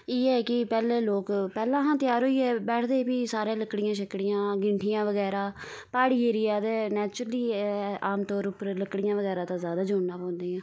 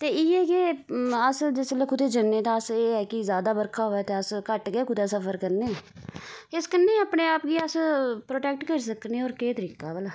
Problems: background sounds at intervals